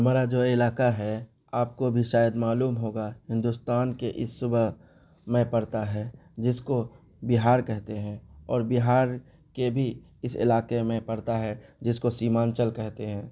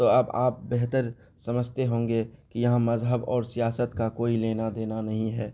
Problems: constant background noise